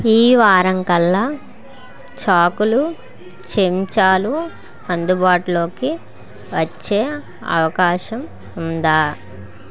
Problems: continuous background conversations